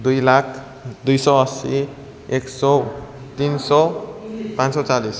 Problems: none marked